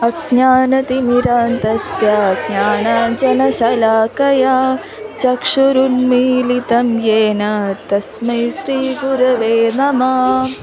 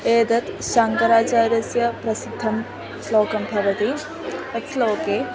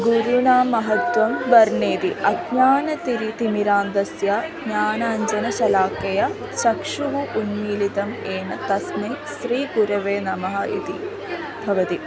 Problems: constant background noise, continuous background conversations